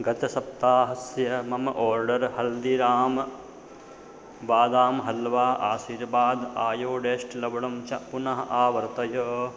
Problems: constant background noise